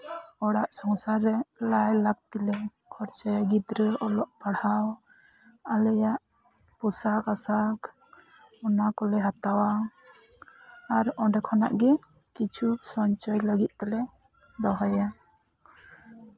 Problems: background conversations at intervals, low volume